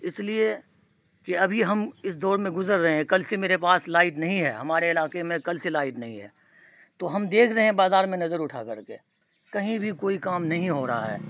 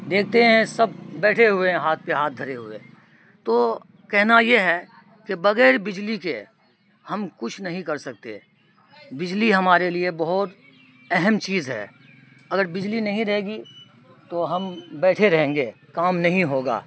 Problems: constant background noise